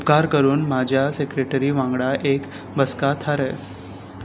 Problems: constant background noise